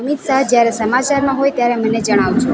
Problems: constant background noise